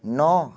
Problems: background sounds at intervals